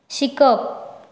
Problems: background sounds at intervals